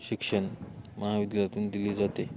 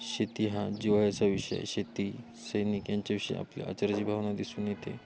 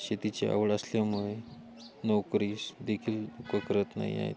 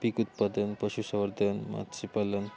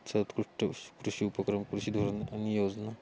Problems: constant background noise